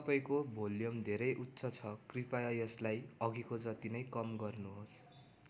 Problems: none marked